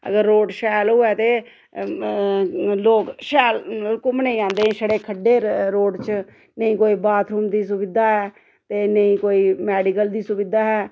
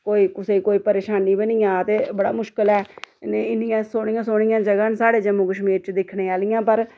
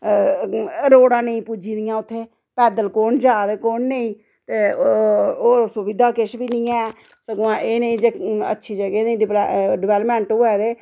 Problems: none marked